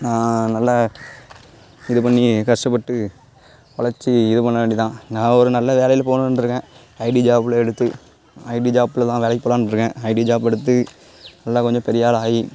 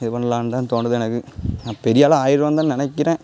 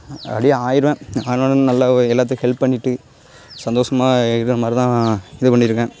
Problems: background sounds at intervals